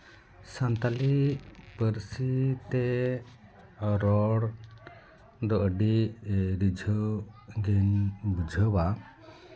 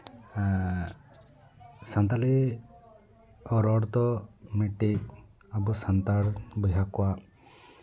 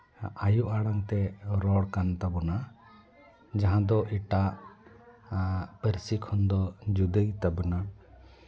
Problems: background conversations at intervals